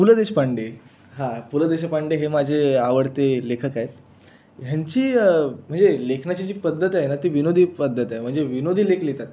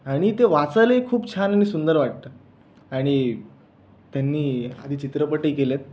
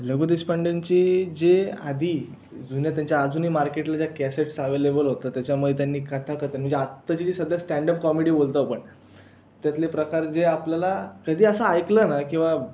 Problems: none marked